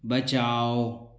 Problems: echo